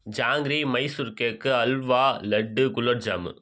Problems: none marked